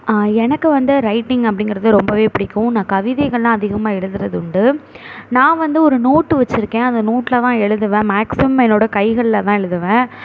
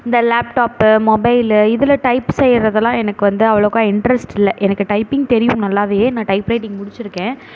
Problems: none marked